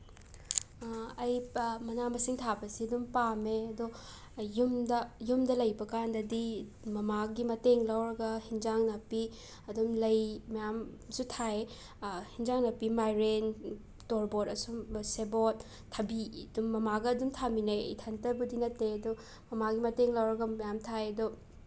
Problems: constant background noise